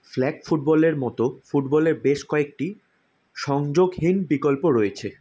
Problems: none marked